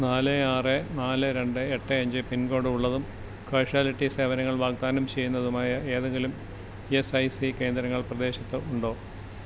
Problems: constant background noise